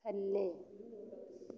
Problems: low volume